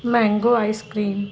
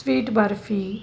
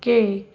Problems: background sounds at intervals